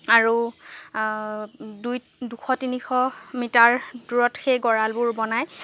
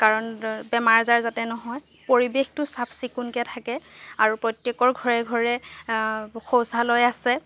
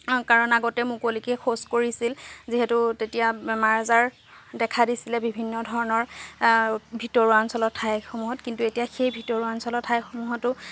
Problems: none marked